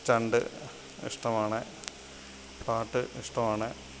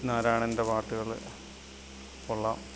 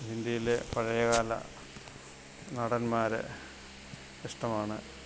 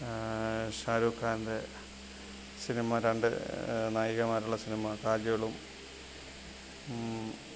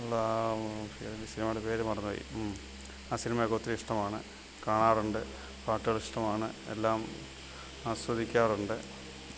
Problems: constant background noise, low volume